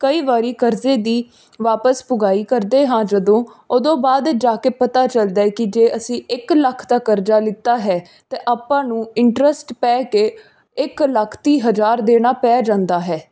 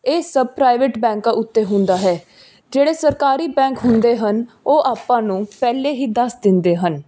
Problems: background sounds at intervals